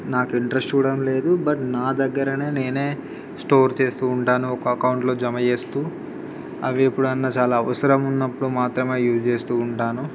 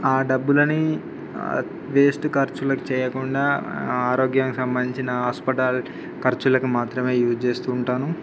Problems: background sounds at intervals, background conversations at intervals